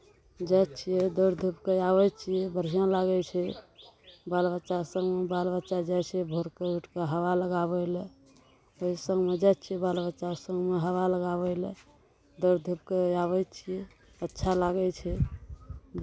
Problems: none marked